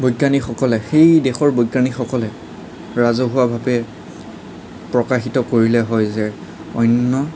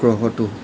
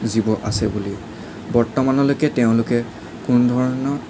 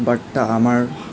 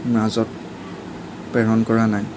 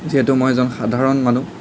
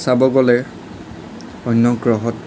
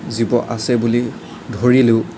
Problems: none marked